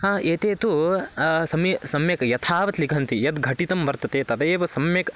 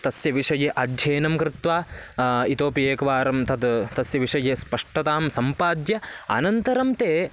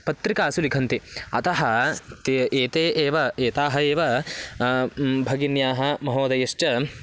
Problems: background sounds at intervals